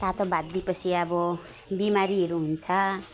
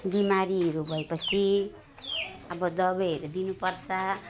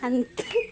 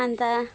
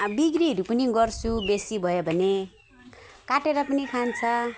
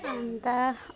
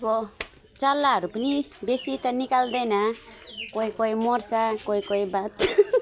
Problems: constant background noise